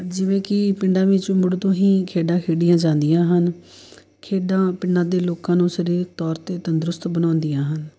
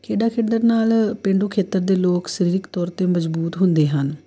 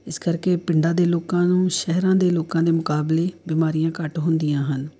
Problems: background sounds at intervals